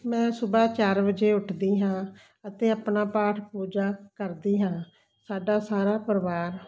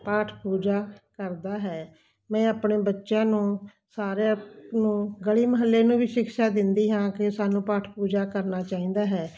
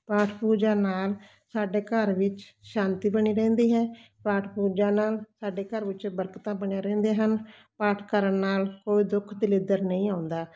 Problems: constant background noise